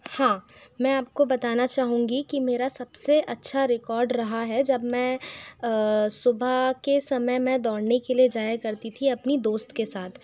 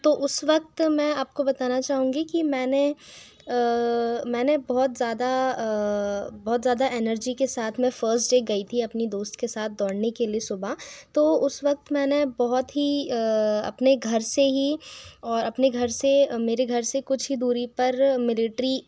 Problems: constant background noise, echo